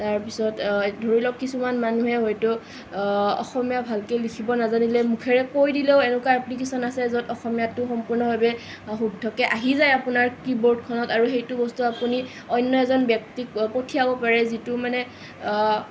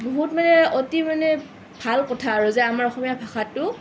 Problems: none marked